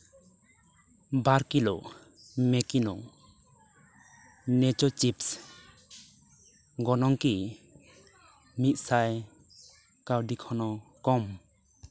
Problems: background conversations at intervals